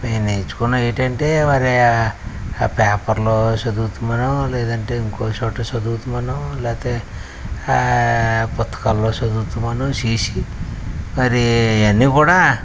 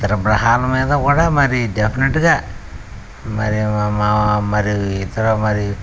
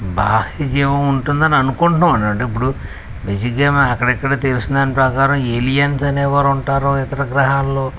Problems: none marked